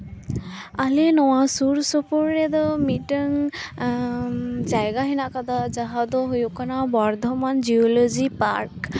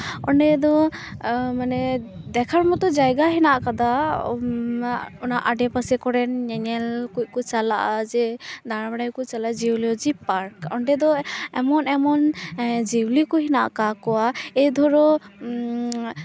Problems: constant background noise, continuous background conversations